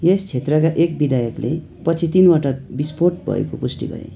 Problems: constant background noise, continuous background conversations